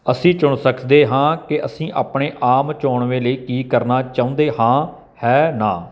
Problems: none marked